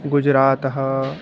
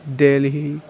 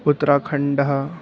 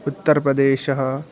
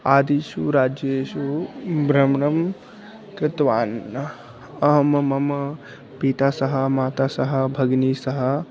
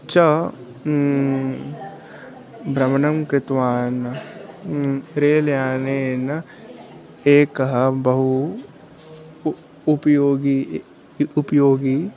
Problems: background sounds at intervals